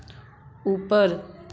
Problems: constant background noise